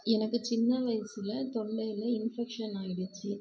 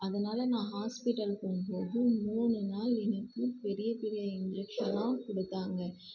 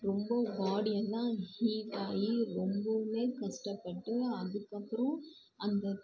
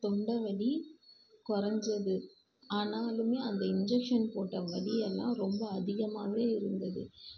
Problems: low volume